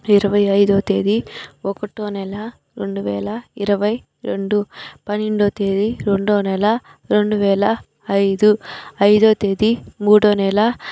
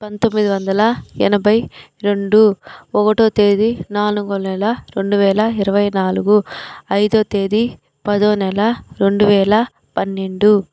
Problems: background sounds at intervals